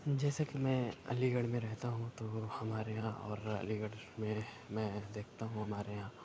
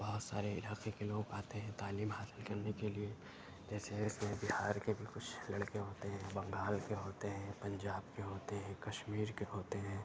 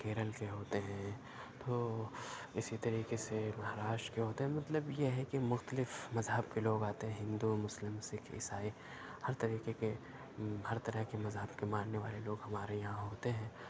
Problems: background sounds at intervals